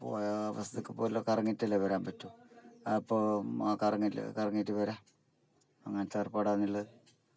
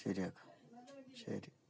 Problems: background sounds at intervals, low volume